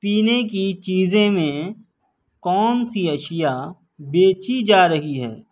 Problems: none marked